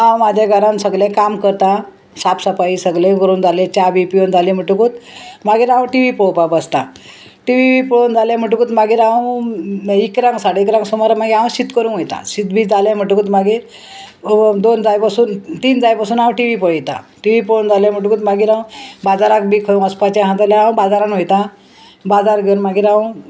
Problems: constant background noise